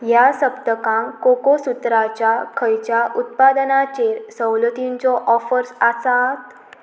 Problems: none marked